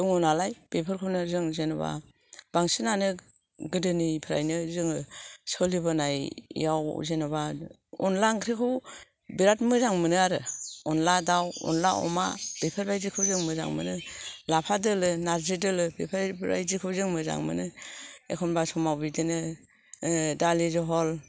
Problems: background sounds at intervals